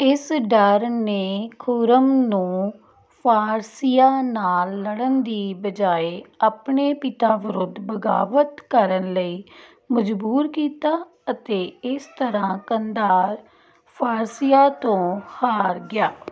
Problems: background conversations at intervals